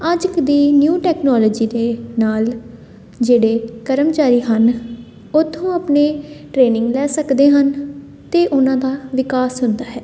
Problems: constant background noise